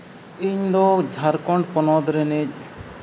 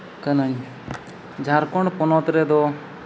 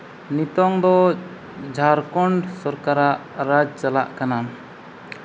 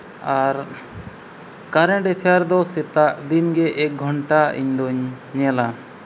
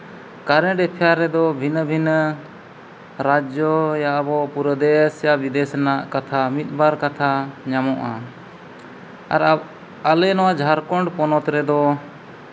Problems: constant background noise